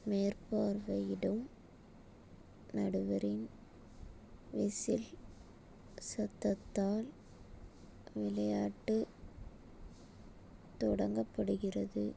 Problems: none marked